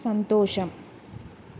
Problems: constant background noise